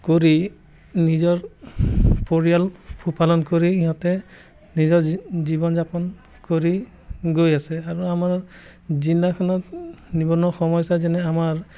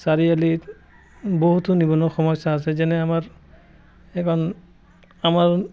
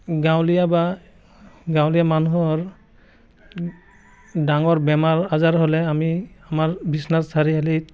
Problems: constant background noise, background conversations at intervals